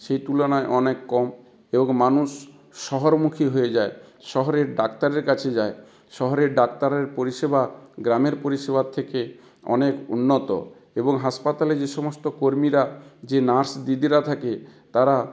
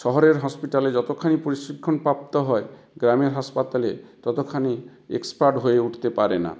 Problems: constant background noise